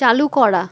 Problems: constant background noise